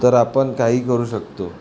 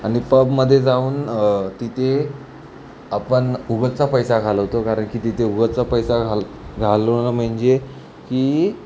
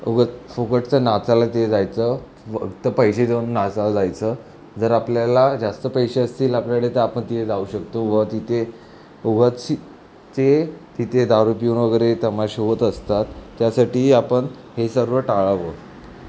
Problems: none marked